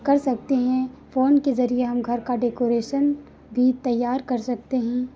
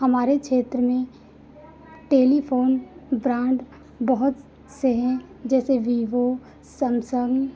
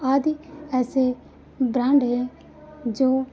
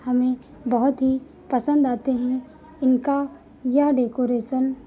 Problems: constant background noise